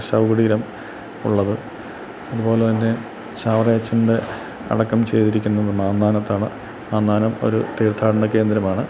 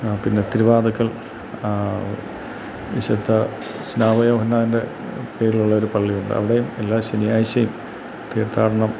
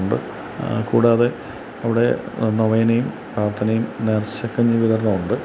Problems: constant background noise